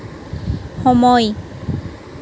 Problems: constant background noise